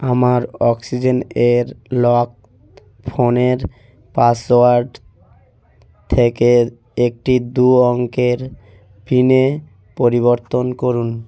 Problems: none marked